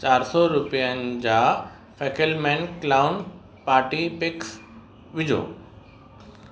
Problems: constant background noise